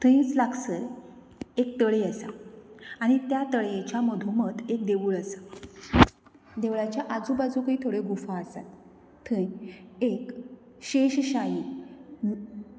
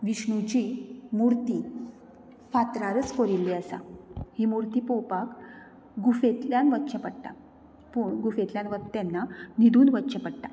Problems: none marked